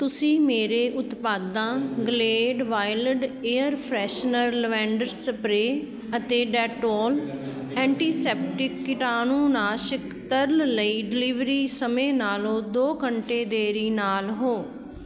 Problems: background sounds at intervals, continuous background conversations